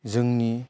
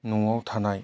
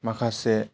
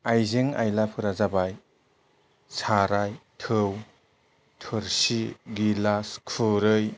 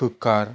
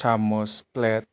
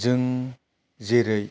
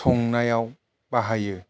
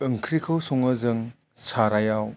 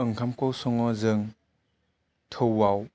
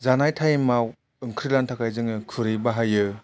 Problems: low volume